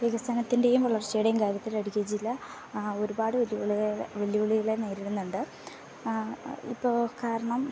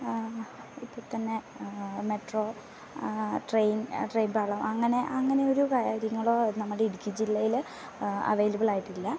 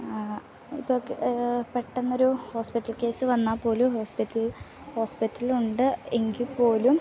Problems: background sounds at intervals